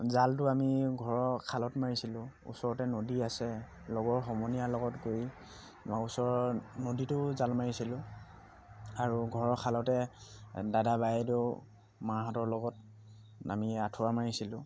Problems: constant background noise